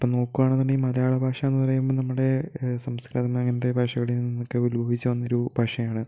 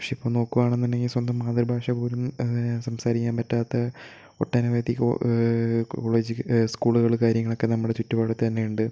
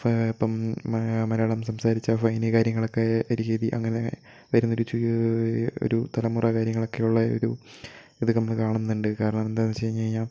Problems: low volume